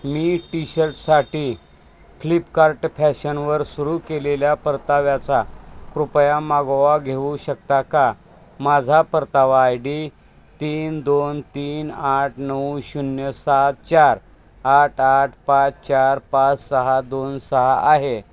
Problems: constant background noise